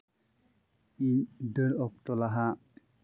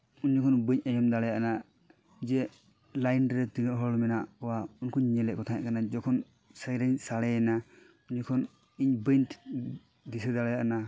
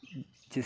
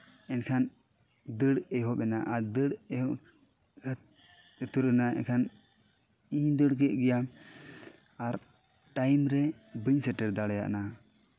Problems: background sounds at intervals